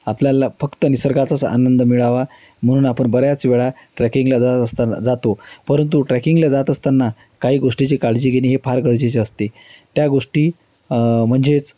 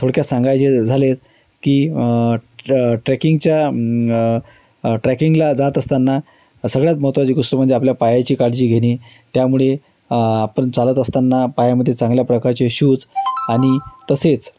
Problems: constant background noise